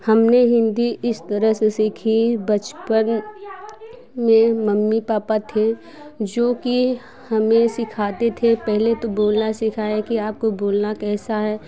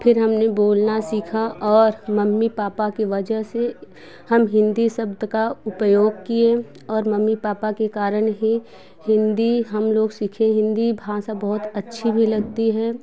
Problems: background sounds at intervals, background conversations at intervals